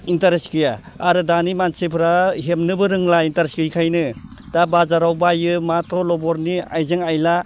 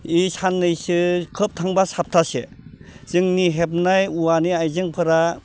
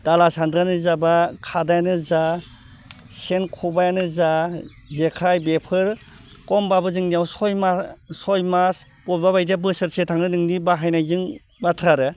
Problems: none marked